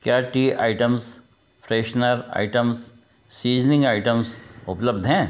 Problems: background sounds at intervals